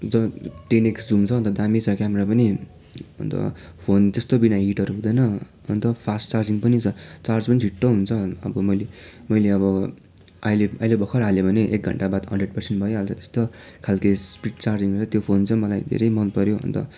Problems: constant background noise